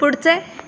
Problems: none marked